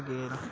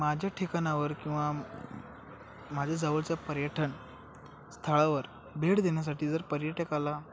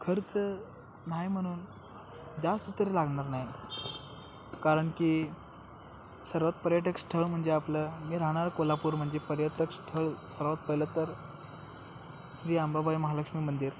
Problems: constant background noise